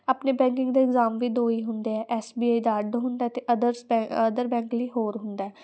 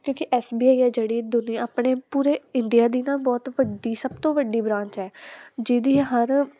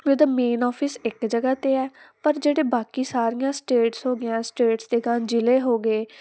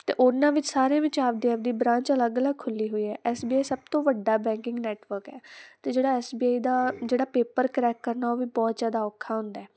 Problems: constant background noise